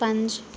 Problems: background sounds at intervals